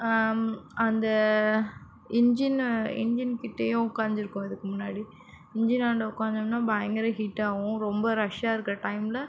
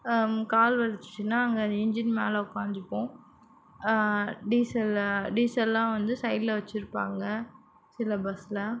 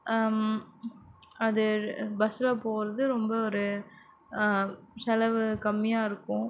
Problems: none marked